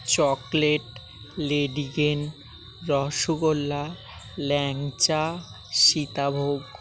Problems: constant background noise